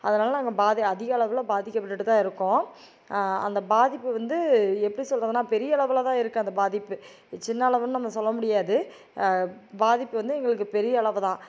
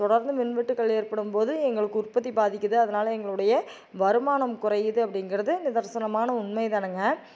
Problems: none marked